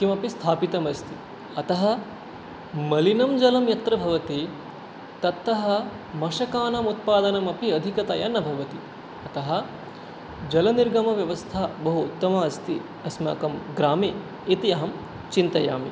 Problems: constant background noise